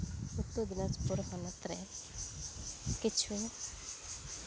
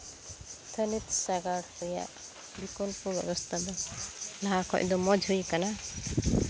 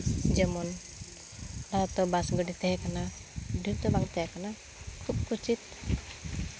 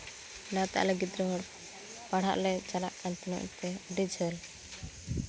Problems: constant background noise, background conversations at intervals